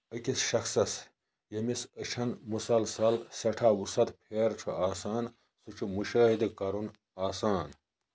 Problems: low volume